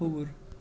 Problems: constant background noise